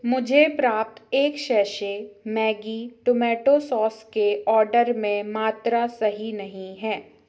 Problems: none marked